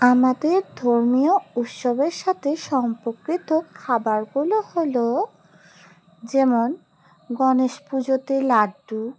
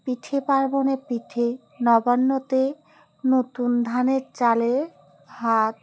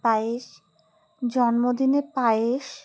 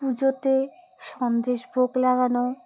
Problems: none marked